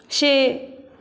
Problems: none marked